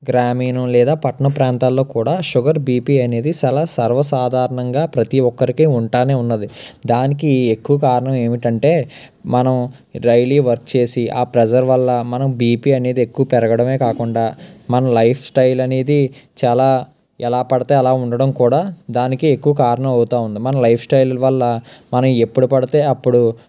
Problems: background sounds at intervals